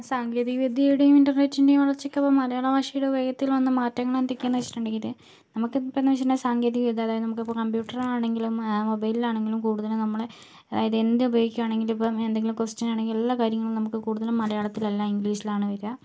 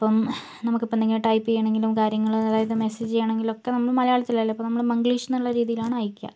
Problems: low volume